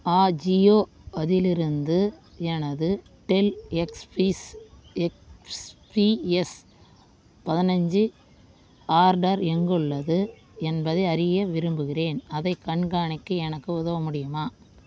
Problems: constant background noise